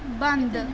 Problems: constant background noise